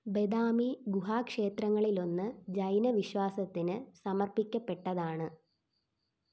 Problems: background sounds at intervals